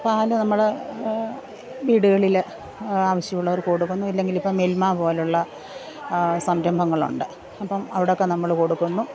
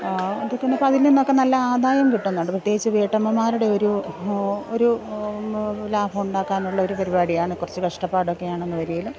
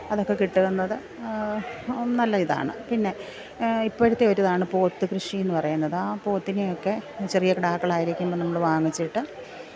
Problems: background sounds at intervals